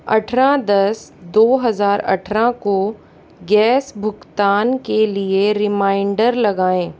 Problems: constant background noise